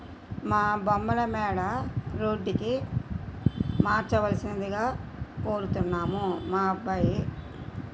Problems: background sounds at intervals